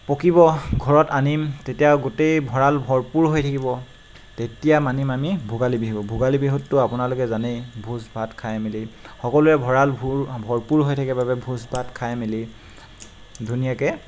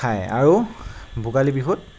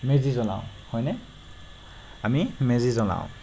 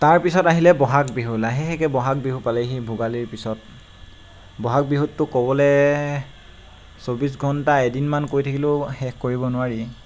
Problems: constant background noise